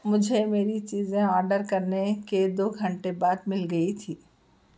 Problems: none marked